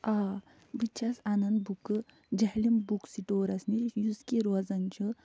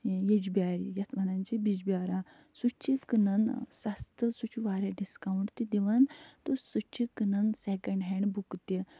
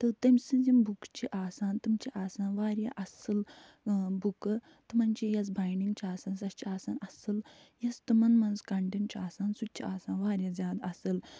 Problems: none marked